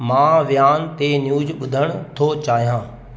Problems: constant background noise, echo